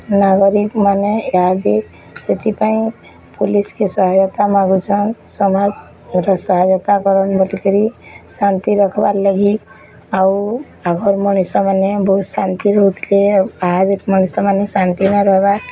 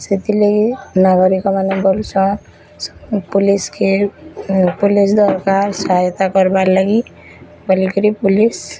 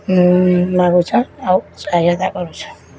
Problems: constant background noise